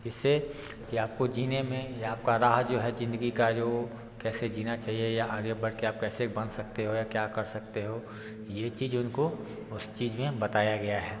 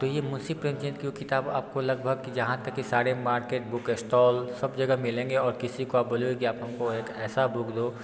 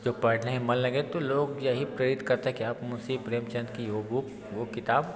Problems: constant background noise, continuous background conversations